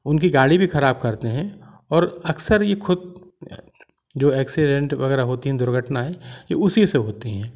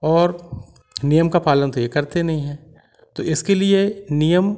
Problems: background sounds at intervals